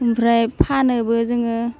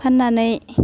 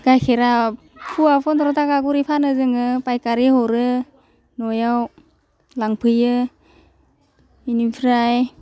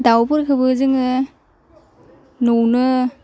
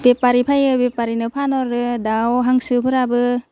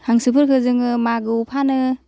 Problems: low volume